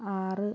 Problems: low volume